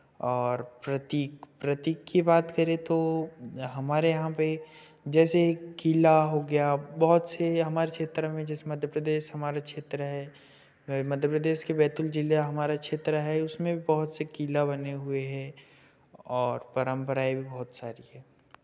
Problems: none marked